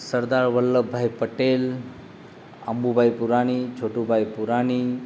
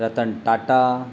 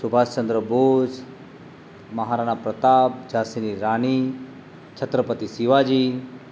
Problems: constant background noise